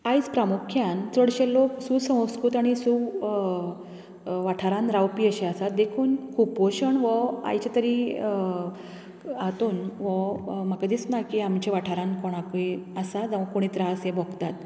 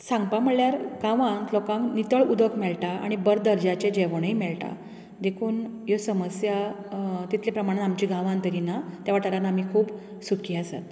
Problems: none marked